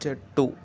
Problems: constant background noise